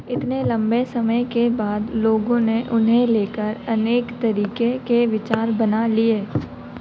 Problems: none marked